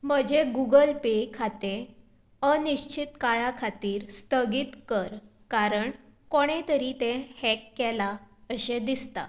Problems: background sounds at intervals